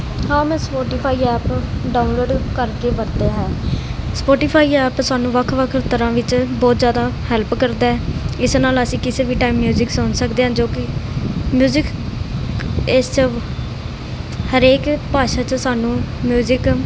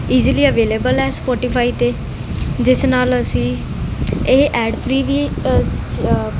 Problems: none marked